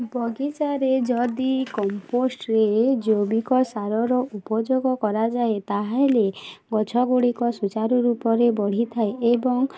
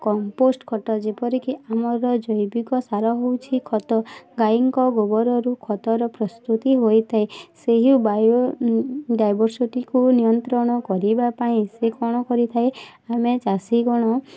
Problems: constant background noise, continuous background conversations